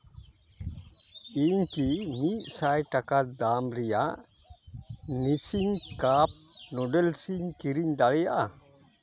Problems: none marked